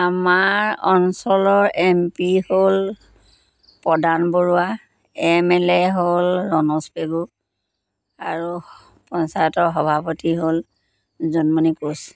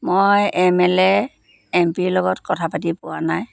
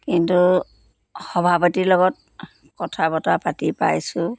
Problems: constant background noise